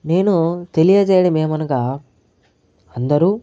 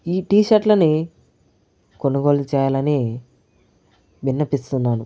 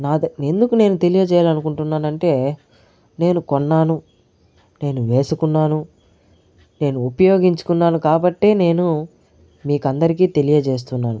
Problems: none marked